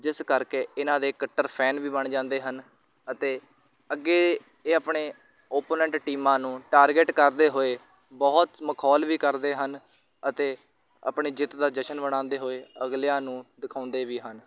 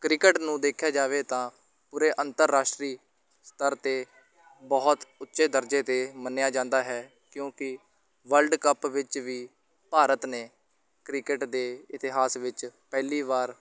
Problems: constant background noise, background conversations at intervals